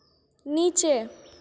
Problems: constant background noise, echo